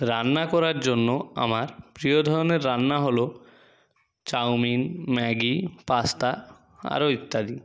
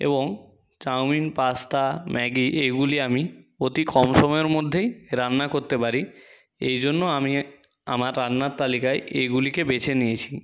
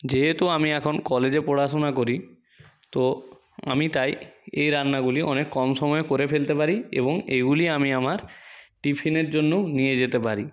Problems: background sounds at intervals